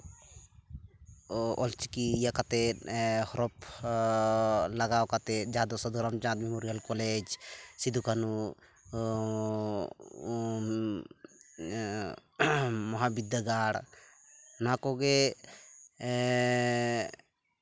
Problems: none marked